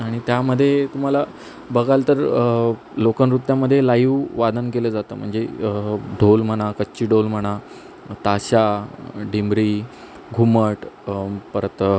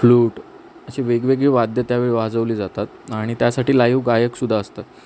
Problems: constant background noise